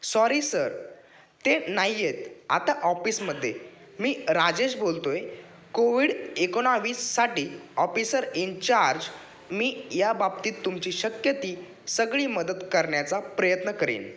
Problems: none marked